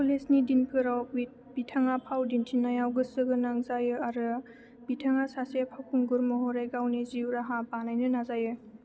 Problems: none marked